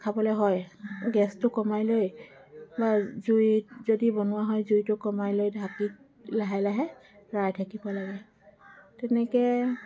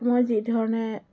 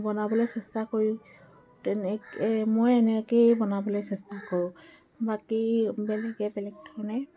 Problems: background sounds at intervals, background conversations at intervals